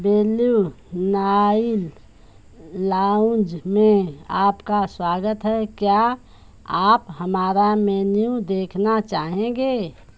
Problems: none marked